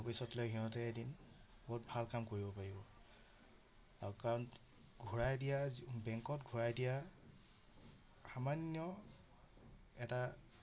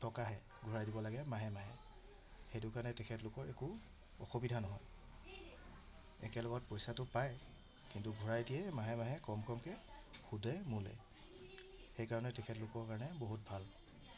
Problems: none marked